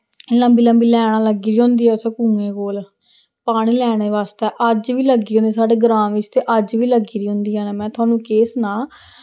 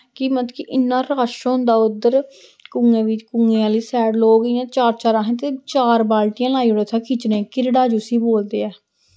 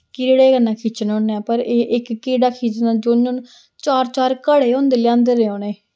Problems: none marked